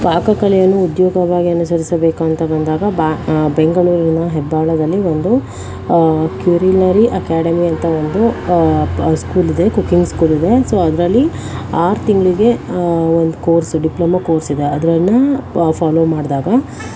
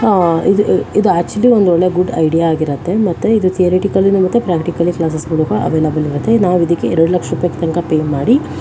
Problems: constant background noise